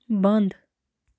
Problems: constant background noise